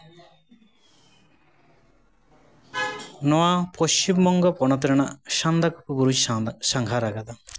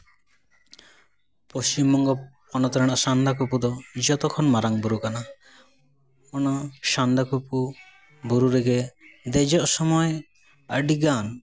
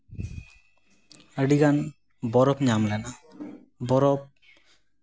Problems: background sounds at intervals, background conversations at intervals